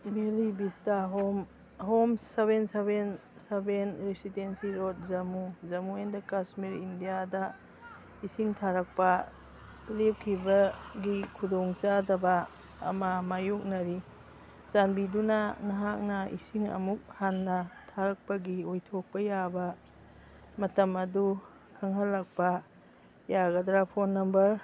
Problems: background sounds at intervals, background conversations at intervals